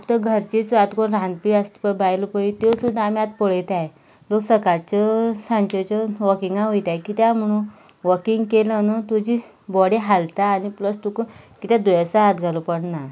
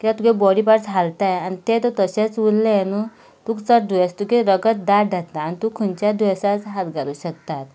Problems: background sounds at intervals